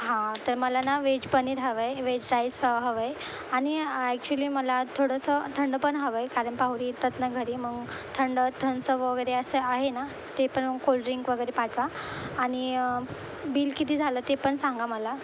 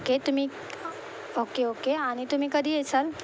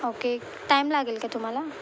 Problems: constant background noise